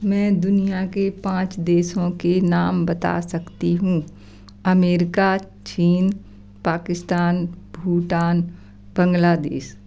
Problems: none marked